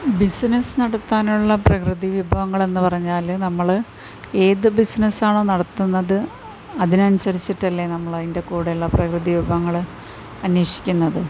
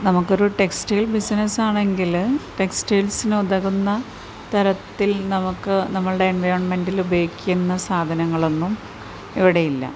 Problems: none marked